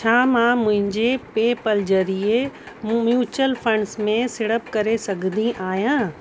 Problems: constant background noise